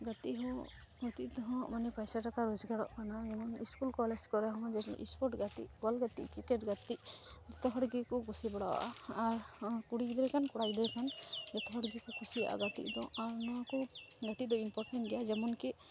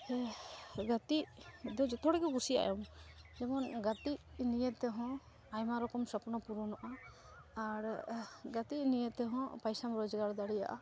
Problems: constant background noise